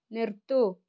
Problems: low volume